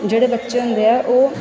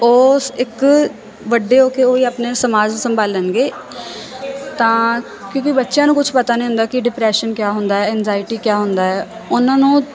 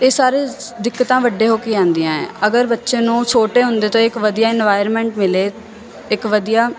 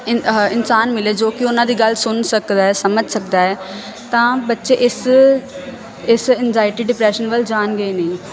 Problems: constant background noise